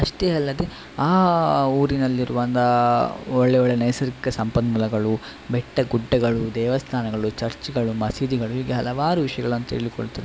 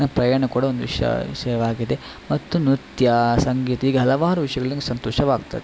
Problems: constant background noise